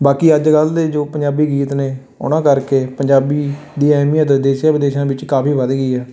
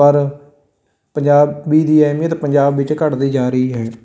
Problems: constant background noise